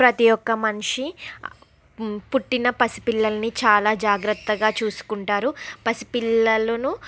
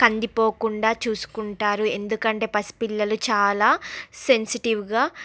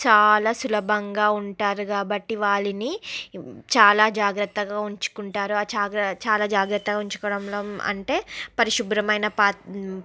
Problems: constant background noise